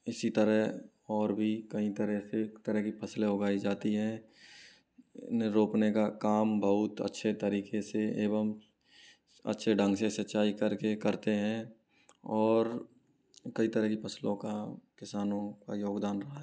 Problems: low volume